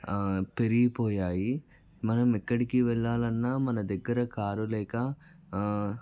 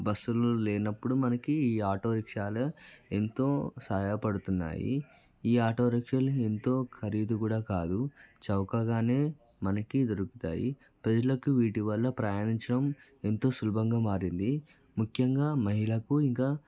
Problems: background conversations at intervals